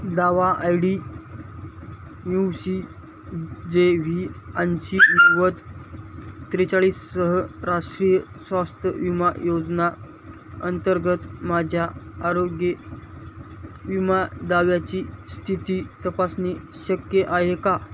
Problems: constant background noise